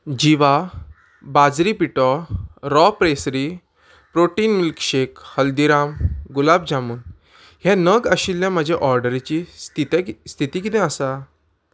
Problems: background sounds at intervals